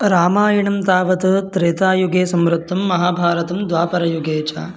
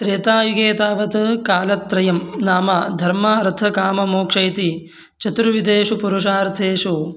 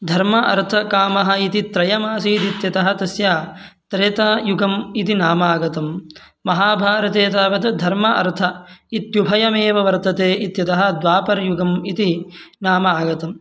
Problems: none marked